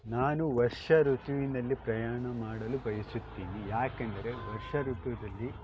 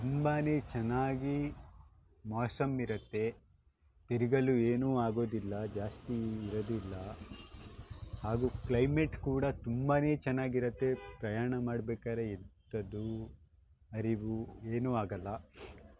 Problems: background sounds at intervals